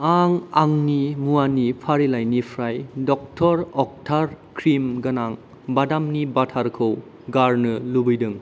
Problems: constant background noise